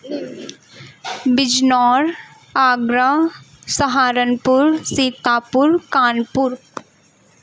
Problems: constant background noise